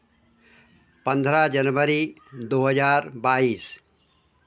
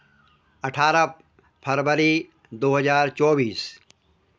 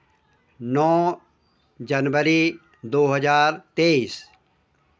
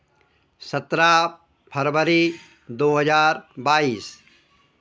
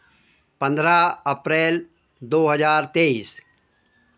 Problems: constant background noise